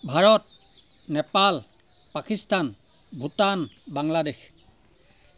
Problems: constant background noise